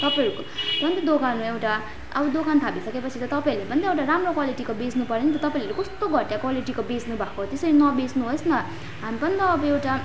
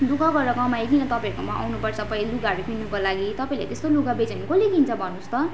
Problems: constant background noise